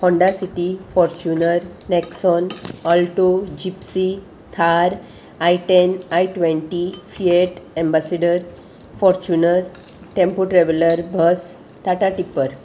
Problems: constant background noise